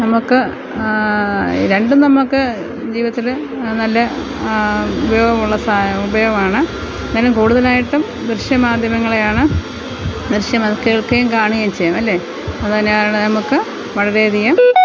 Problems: constant background noise, low volume